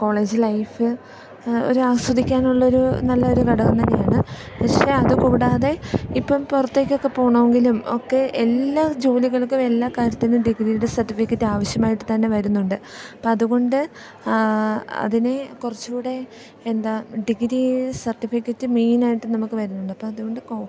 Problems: none marked